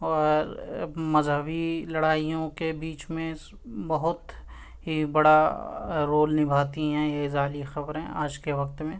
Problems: constant background noise